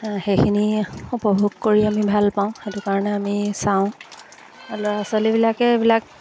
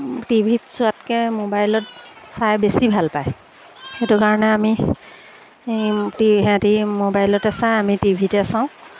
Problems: background sounds at intervals